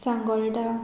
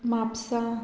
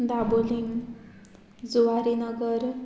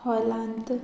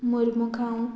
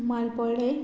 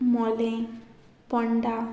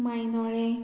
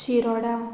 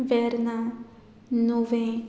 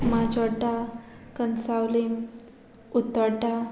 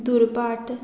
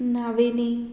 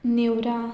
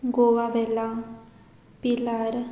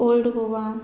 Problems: background sounds at intervals